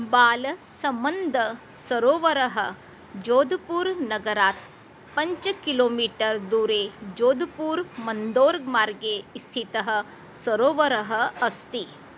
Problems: none marked